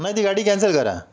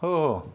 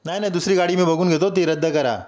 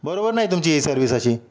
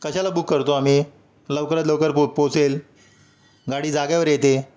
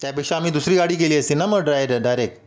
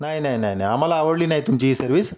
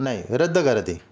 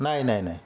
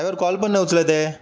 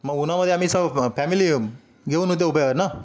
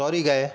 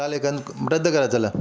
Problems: none marked